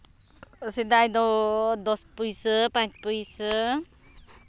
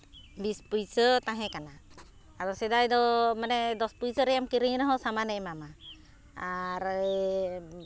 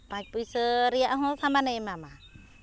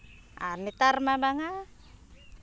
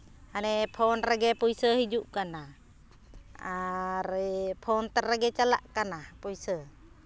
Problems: none marked